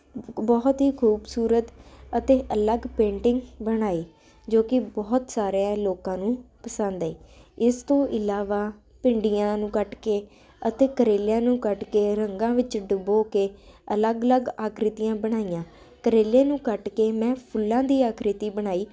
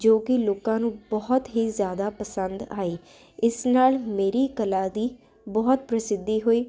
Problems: constant background noise